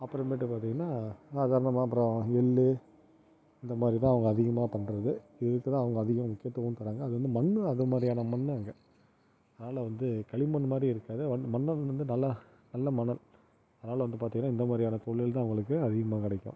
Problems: none marked